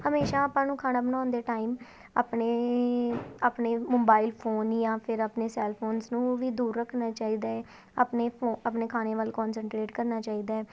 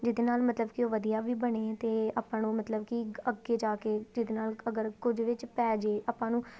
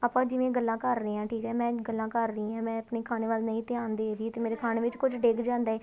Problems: none marked